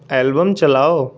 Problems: constant background noise